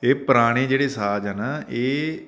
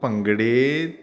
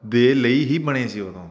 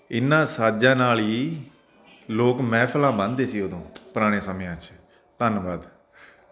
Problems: constant background noise